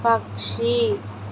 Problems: constant background noise